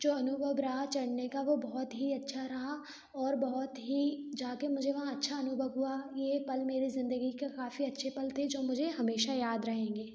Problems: none marked